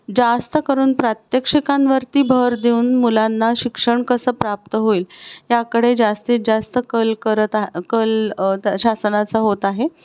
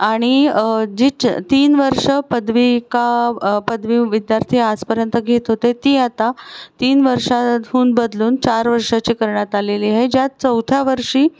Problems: none marked